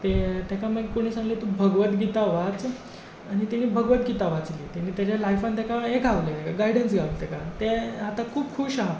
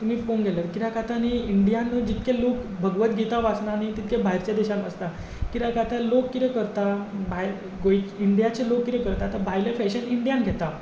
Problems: background sounds at intervals